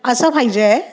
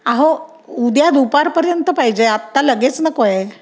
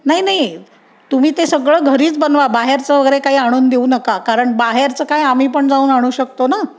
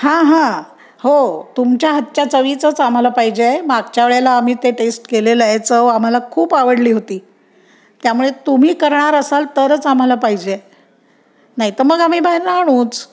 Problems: none marked